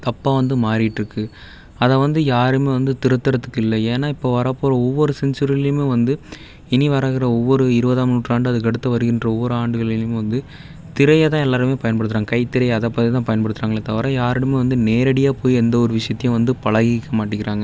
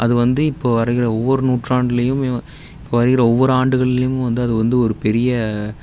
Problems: none marked